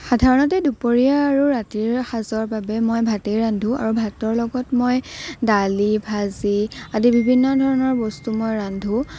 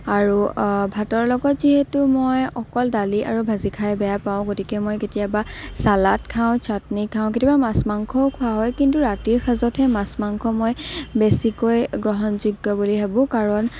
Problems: none marked